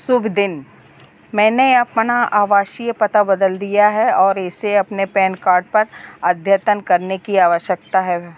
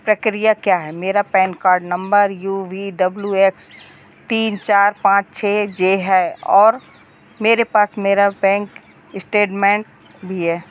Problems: none marked